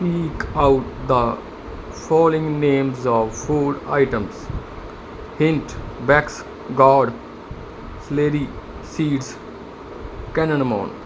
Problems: background sounds at intervals